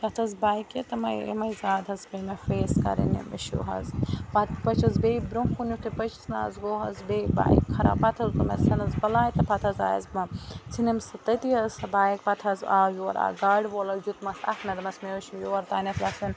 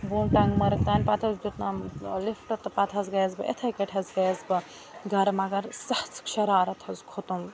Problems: constant background noise